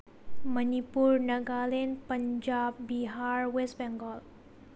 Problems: low volume